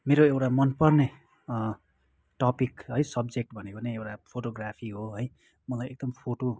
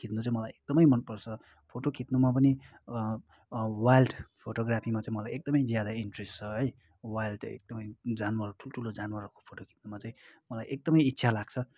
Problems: continuous background conversations